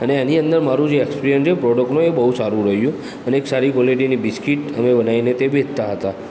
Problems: background sounds at intervals